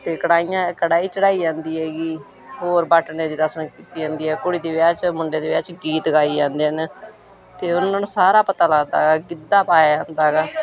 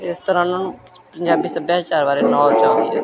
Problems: continuous background conversations